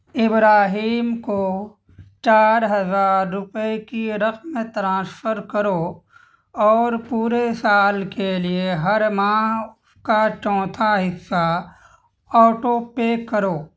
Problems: constant background noise